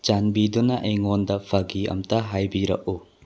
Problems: low volume